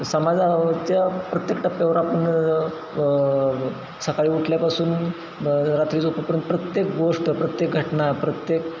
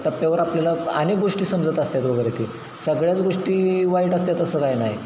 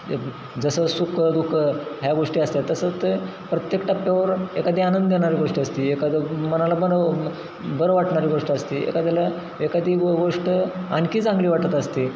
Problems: constant background noise